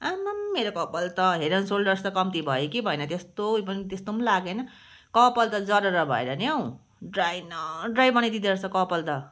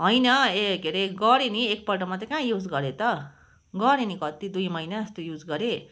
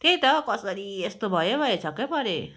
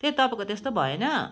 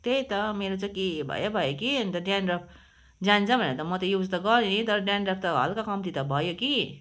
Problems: background sounds at intervals